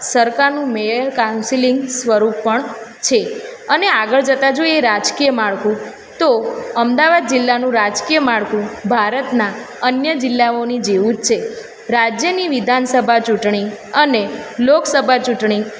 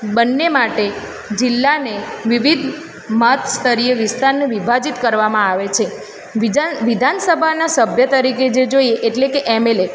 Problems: constant background noise